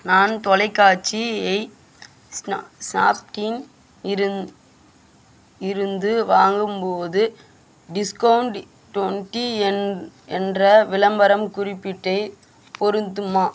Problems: constant background noise